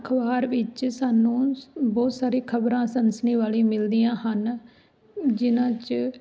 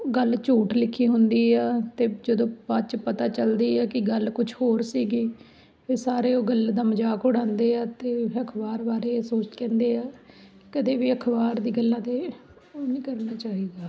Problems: background sounds at intervals